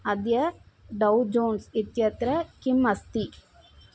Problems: none marked